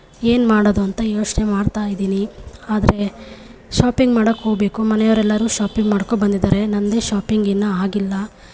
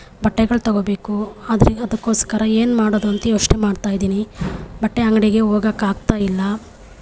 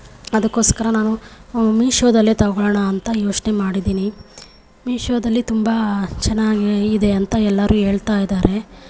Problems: none marked